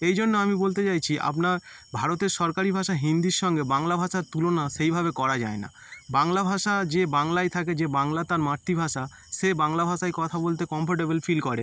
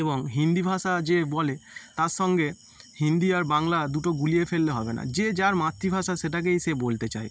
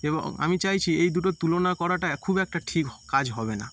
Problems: constant background noise